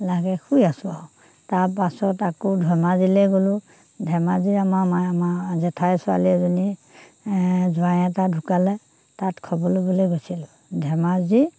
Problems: background sounds at intervals